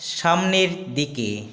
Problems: constant background noise